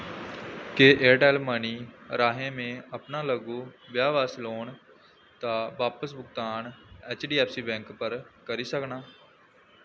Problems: constant background noise